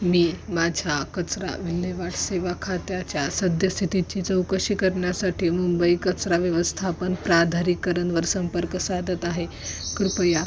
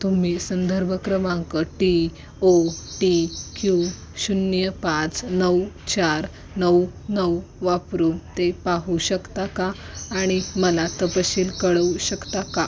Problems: constant background noise, background conversations at intervals